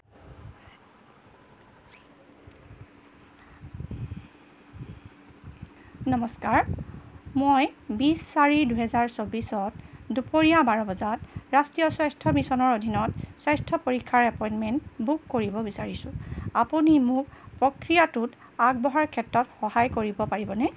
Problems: constant background noise